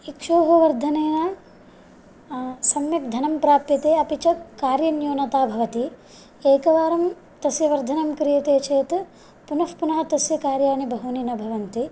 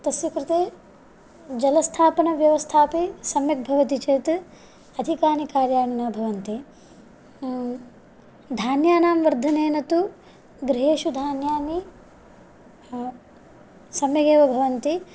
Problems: none marked